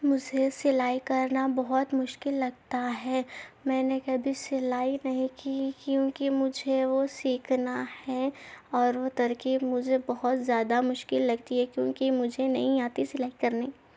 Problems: none marked